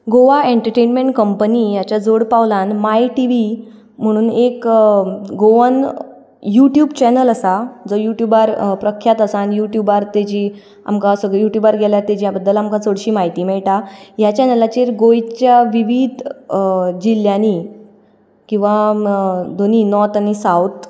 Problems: background sounds at intervals